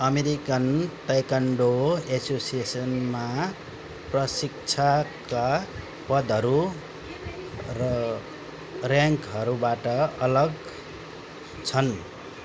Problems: background conversations at intervals